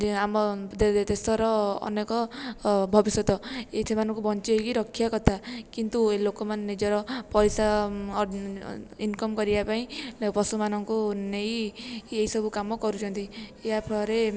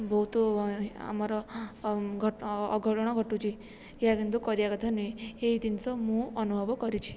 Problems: low volume